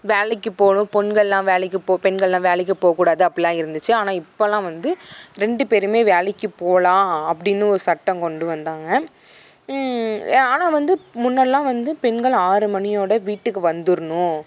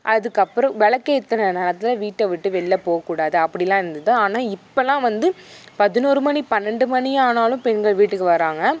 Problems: background sounds at intervals